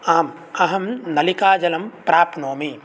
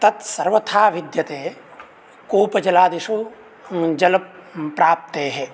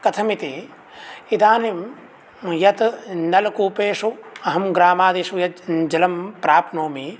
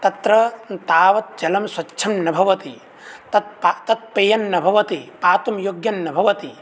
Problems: none marked